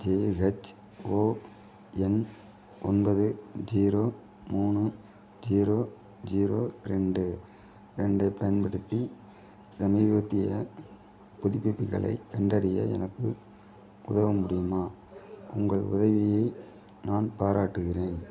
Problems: none marked